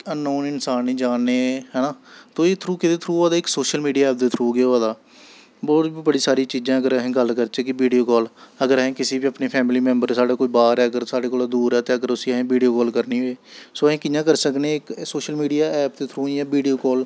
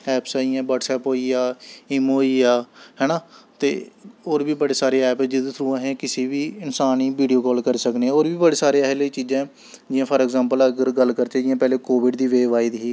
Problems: none marked